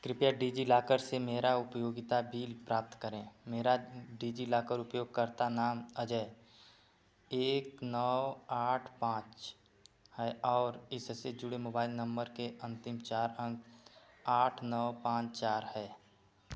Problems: constant background noise